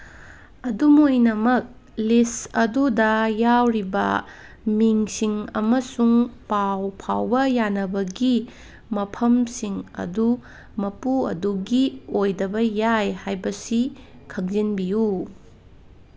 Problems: none marked